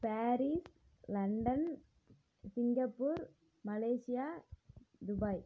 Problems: low volume